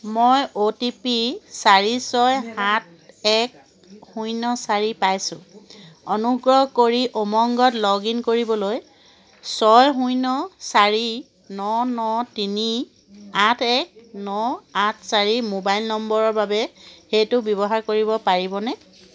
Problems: none marked